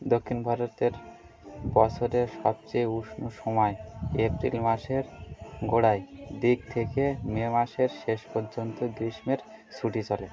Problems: constant background noise, continuous background conversations